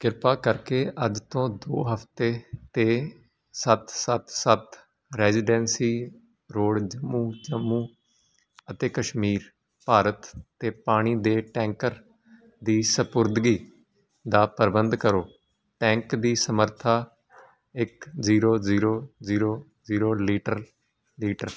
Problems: constant background noise